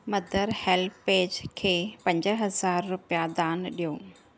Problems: none marked